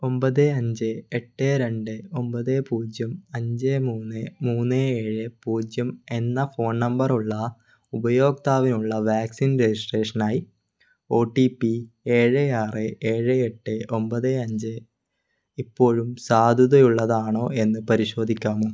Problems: none marked